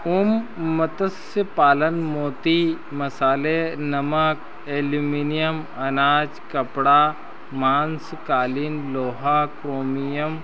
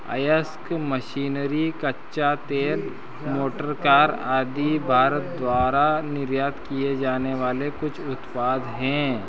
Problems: constant background noise